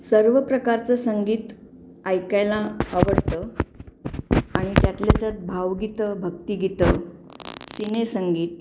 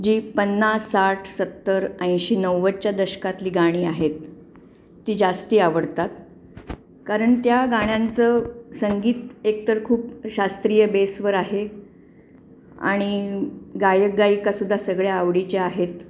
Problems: constant background noise, background conversations at intervals